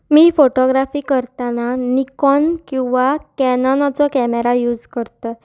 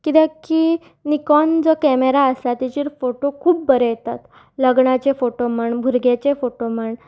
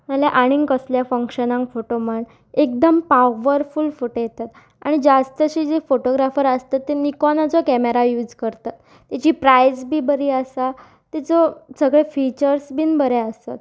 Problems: background sounds at intervals